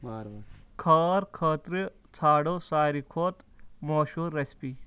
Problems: background conversations at intervals